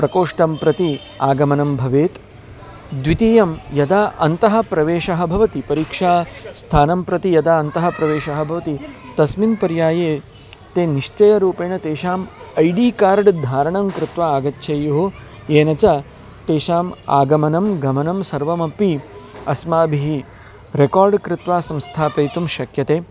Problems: background sounds at intervals